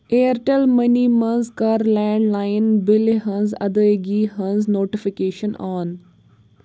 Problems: background sounds at intervals